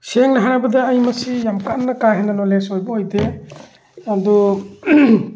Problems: background sounds at intervals